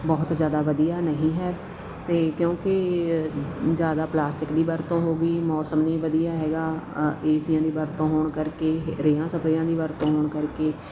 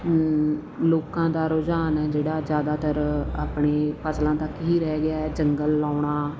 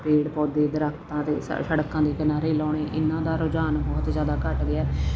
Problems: none marked